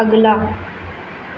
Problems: constant background noise